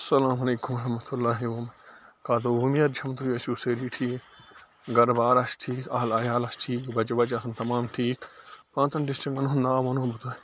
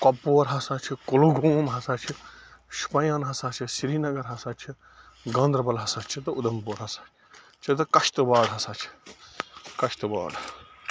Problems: constant background noise